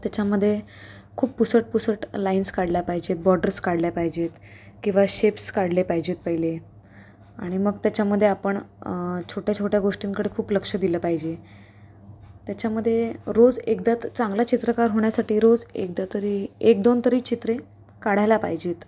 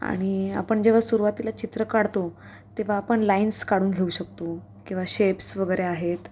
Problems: constant background noise, background conversations at intervals